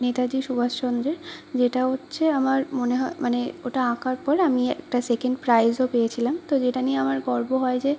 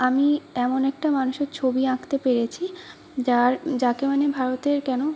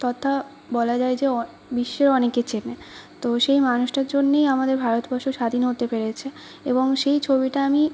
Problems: constant background noise